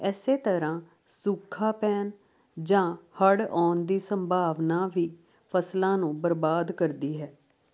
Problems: none marked